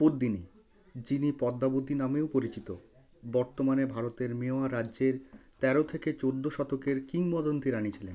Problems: background sounds at intervals